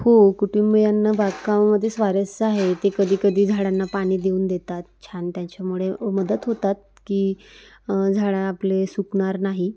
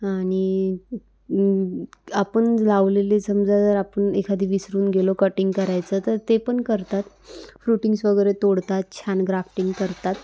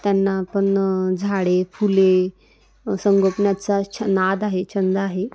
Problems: none marked